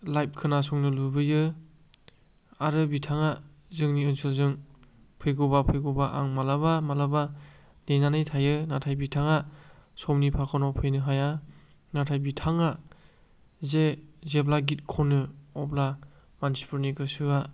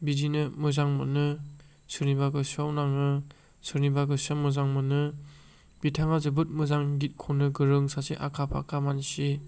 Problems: none marked